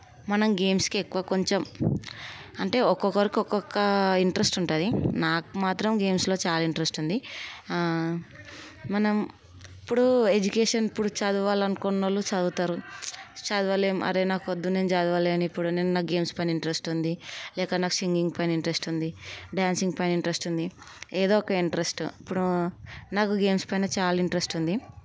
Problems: none marked